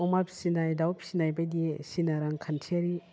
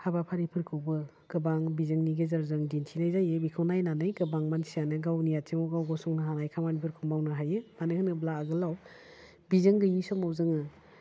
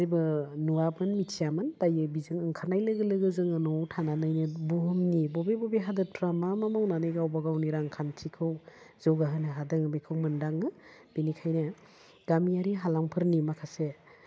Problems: none marked